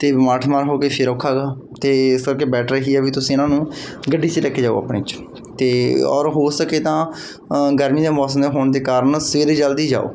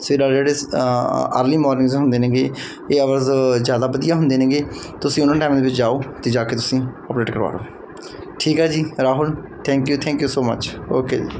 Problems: background sounds at intervals